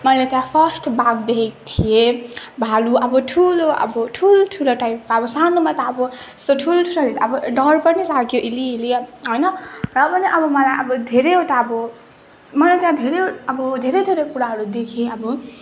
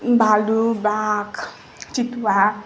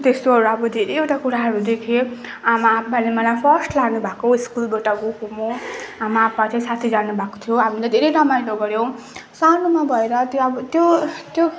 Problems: background sounds at intervals, background conversations at intervals